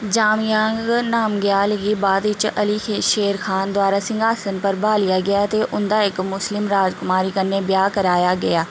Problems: constant background noise